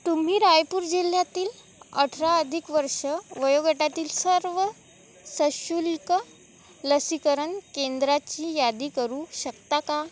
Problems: none marked